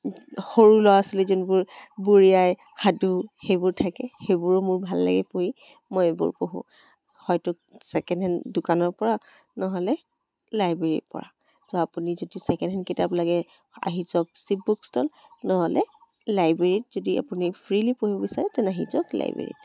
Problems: background sounds at intervals, background conversations at intervals